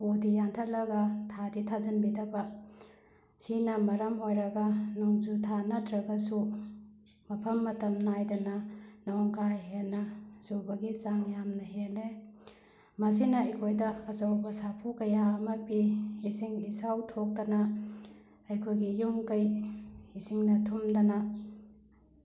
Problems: background sounds at intervals